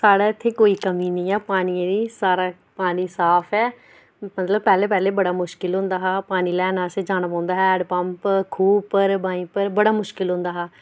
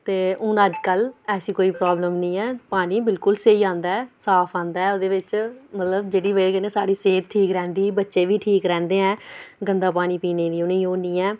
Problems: none marked